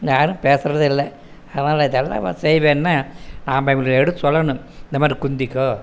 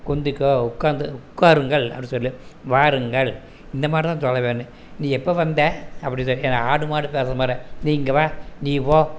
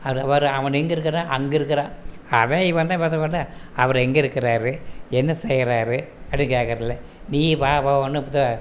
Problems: background sounds at intervals